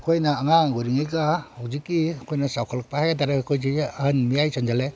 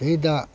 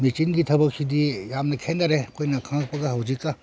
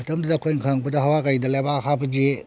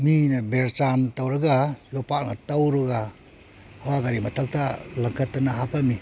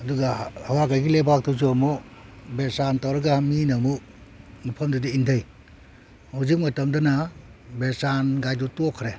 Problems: none marked